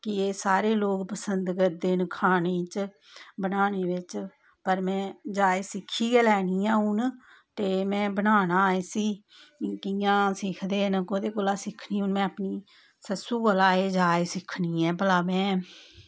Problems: none marked